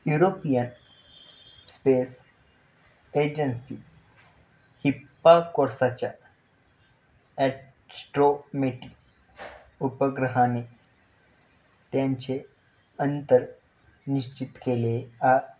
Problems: constant background noise